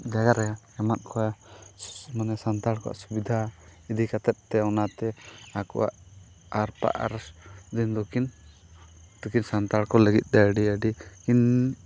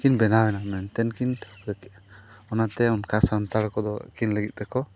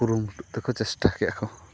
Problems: background sounds at intervals